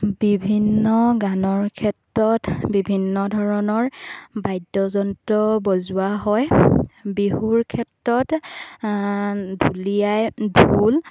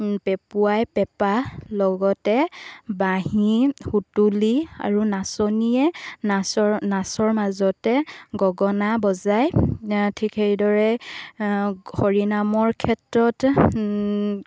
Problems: background sounds at intervals